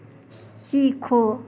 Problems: constant background noise, continuous background conversations